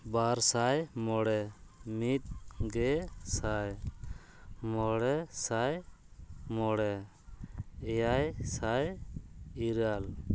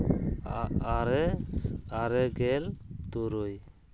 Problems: none marked